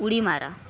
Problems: background sounds at intervals